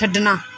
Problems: background sounds at intervals